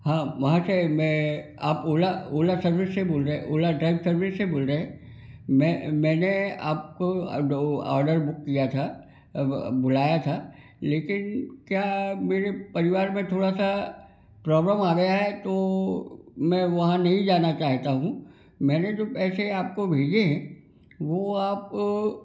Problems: constant background noise